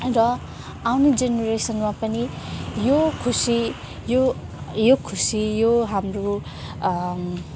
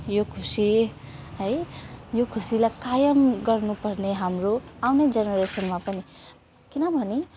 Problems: constant background noise, continuous background conversations